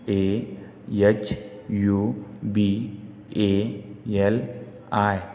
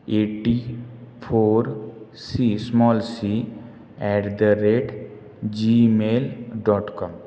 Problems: none marked